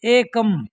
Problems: none marked